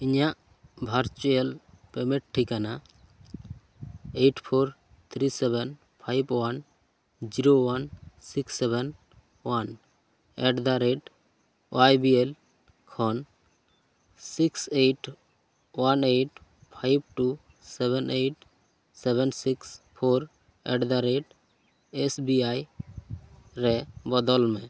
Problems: none marked